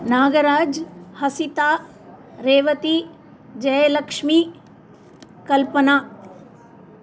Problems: none marked